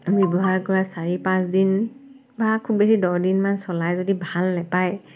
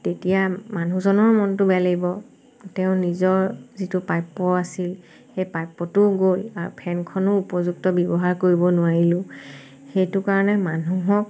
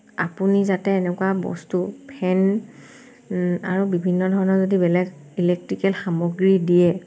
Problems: constant background noise